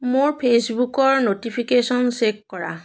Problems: background sounds at intervals